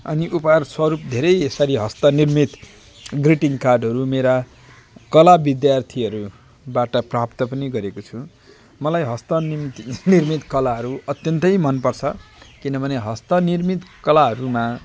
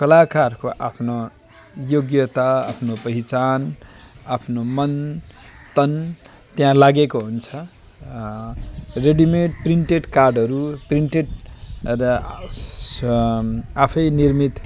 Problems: constant background noise